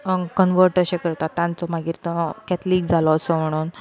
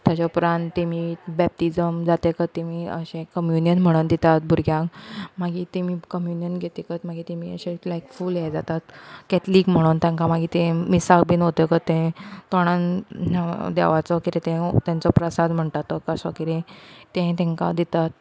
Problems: background conversations at intervals